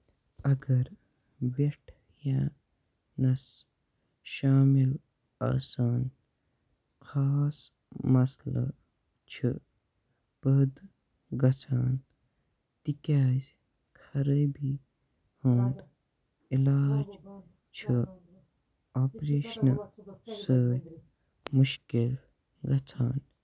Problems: continuous background conversations, low volume